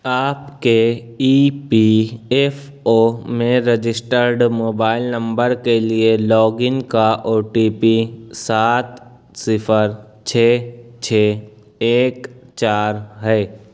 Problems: none marked